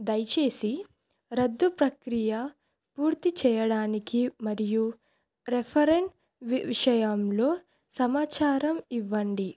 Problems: none marked